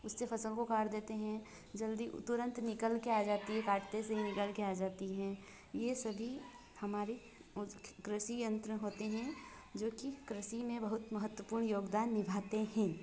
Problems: constant background noise